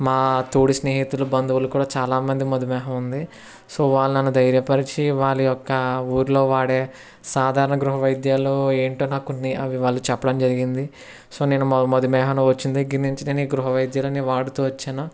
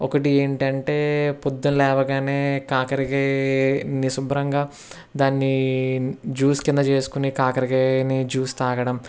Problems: constant background noise, background conversations at intervals